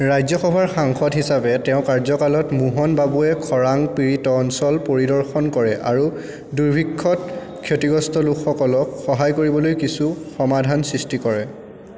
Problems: constant background noise